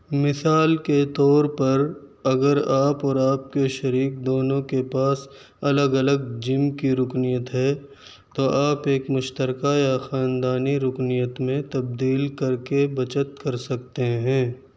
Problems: none marked